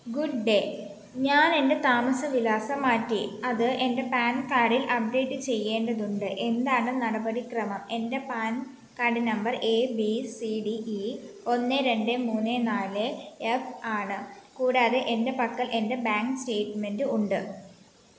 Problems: none marked